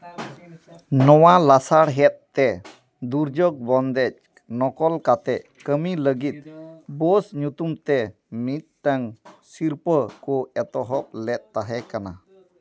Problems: none marked